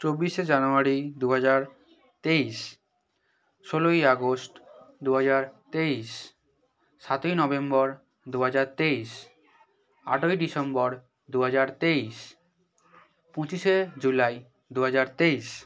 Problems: none marked